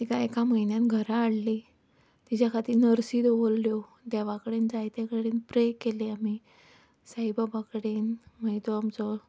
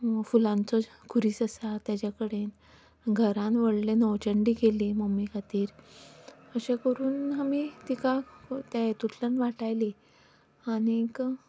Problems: background sounds at intervals